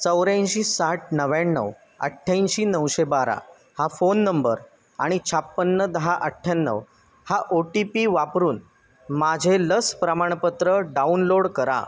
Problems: constant background noise